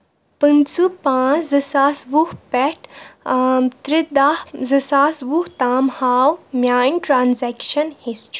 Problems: background sounds at intervals